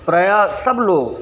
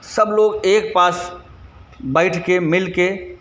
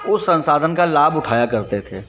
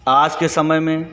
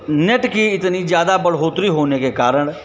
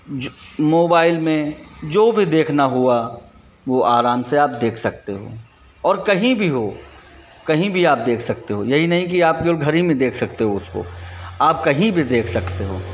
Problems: constant background noise, background conversations at intervals